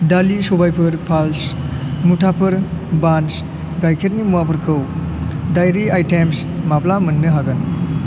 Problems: none marked